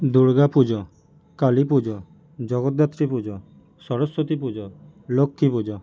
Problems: none marked